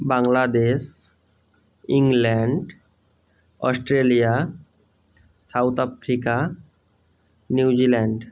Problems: none marked